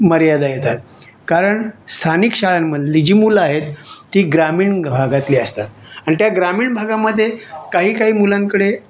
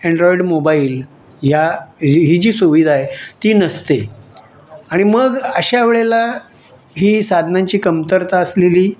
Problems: none marked